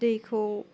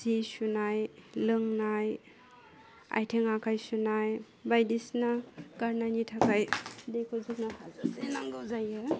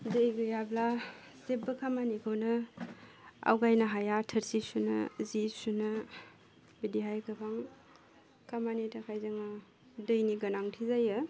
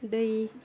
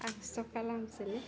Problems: none marked